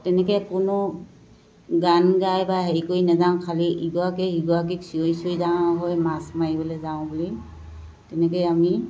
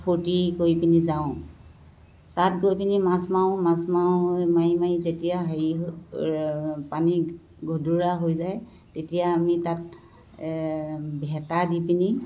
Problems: constant background noise